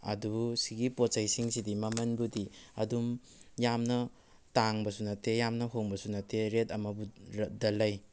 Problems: background sounds at intervals